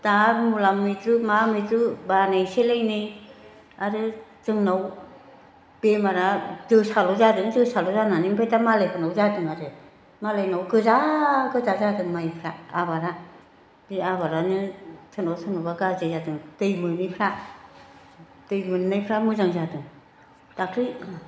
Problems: constant background noise